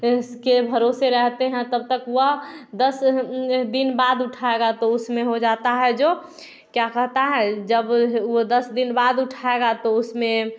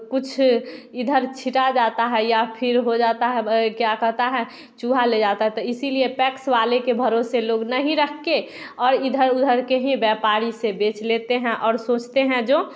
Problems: background sounds at intervals, background conversations at intervals